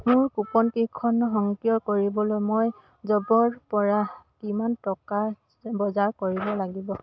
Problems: none marked